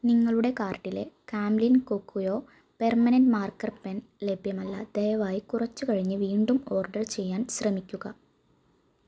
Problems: none marked